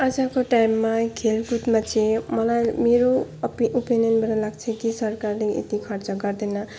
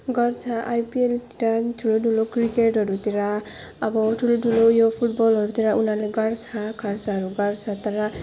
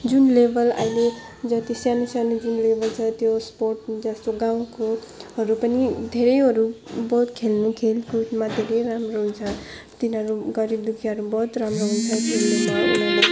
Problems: background sounds at intervals